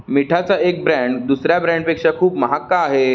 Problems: none marked